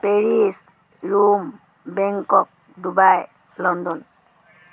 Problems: none marked